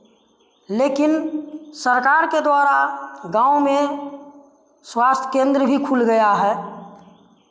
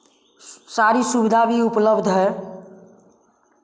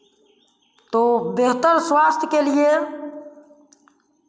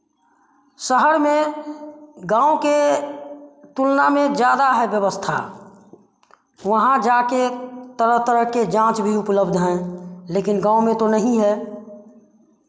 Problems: none marked